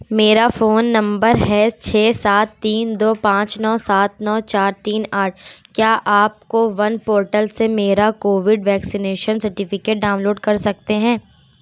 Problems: none marked